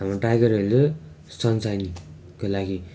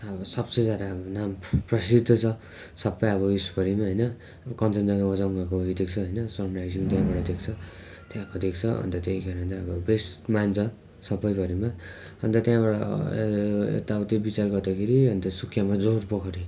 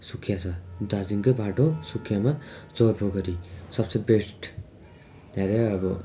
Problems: constant background noise